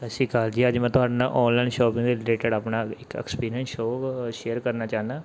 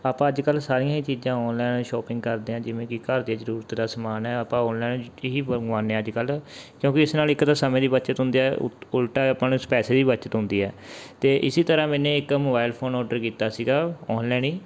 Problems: background sounds at intervals